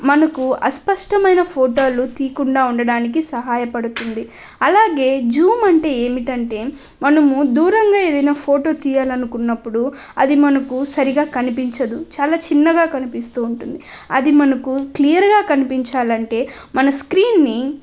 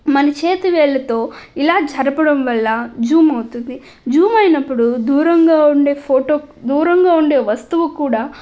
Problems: none marked